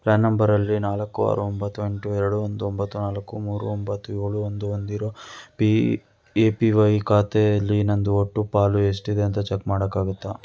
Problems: none marked